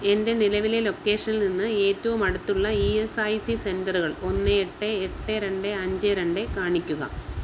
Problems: none marked